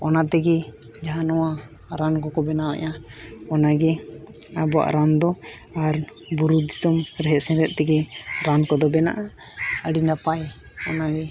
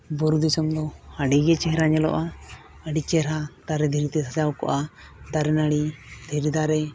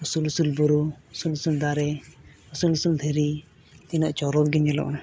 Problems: none marked